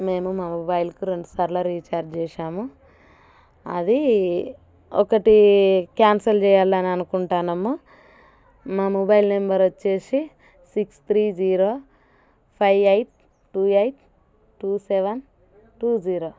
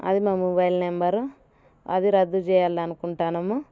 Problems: none marked